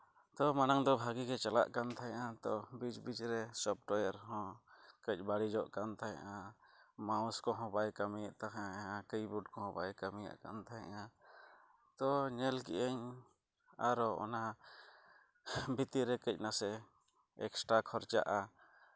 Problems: low volume